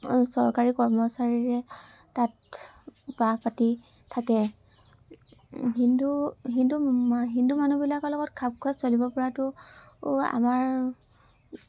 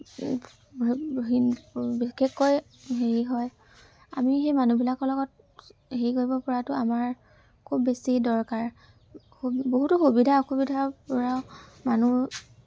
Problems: constant background noise, background conversations at intervals